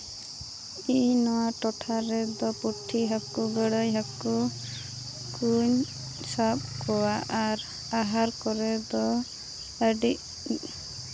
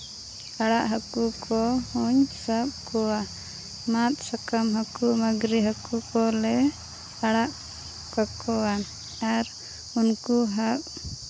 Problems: constant background noise